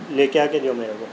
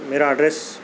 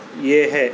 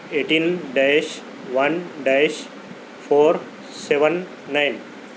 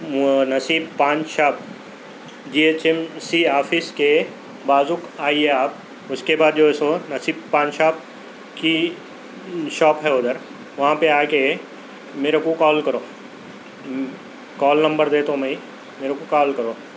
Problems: constant background noise